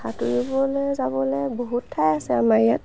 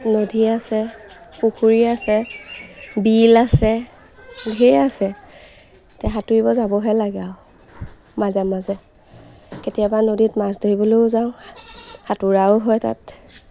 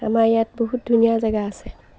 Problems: constant background noise, background conversations at intervals